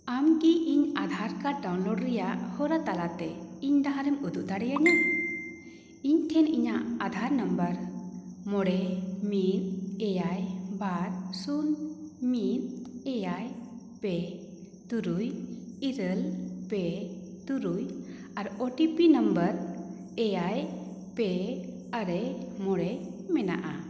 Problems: echo